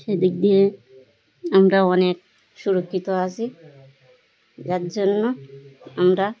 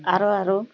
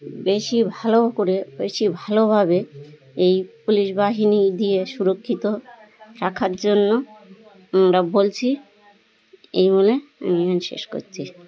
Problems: constant background noise, continuous background conversations